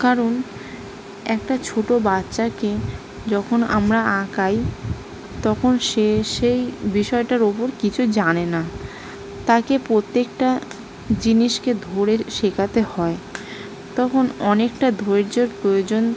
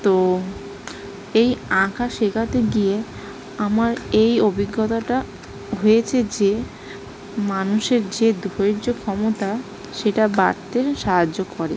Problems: background sounds at intervals